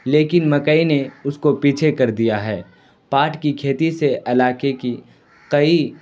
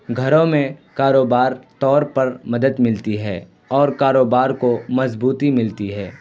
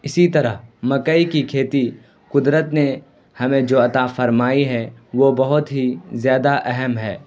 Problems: constant background noise